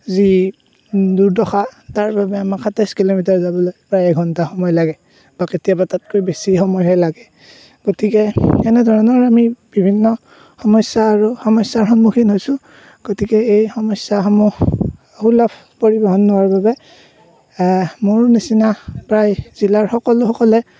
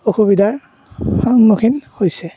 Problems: none marked